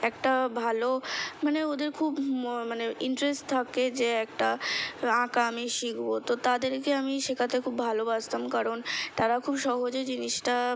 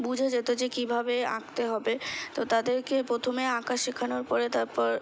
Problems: constant background noise